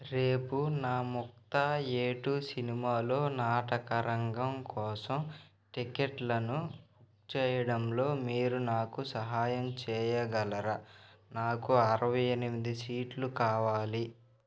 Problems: constant background noise